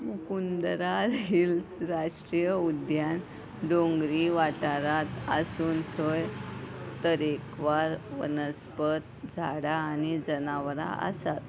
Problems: none marked